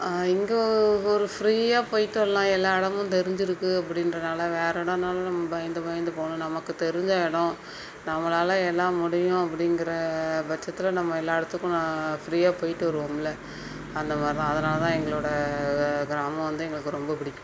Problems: background sounds at intervals